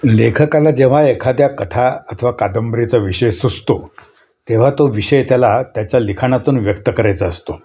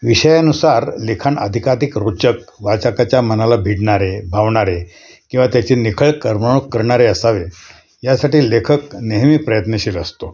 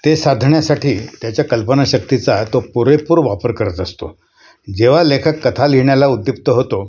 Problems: constant background noise, background conversations at intervals